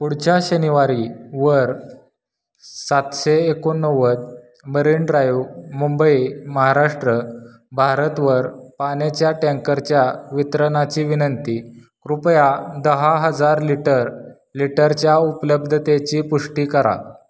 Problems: none marked